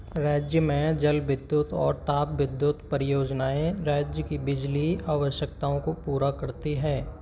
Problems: constant background noise, background conversations at intervals